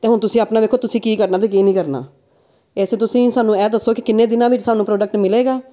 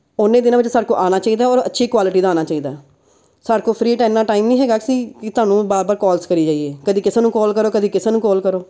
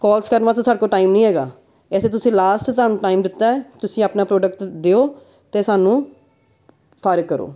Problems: background sounds at intervals, background conversations at intervals